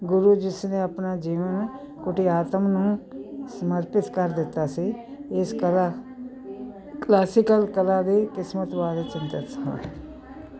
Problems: constant background noise